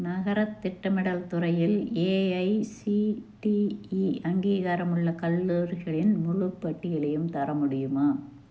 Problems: none marked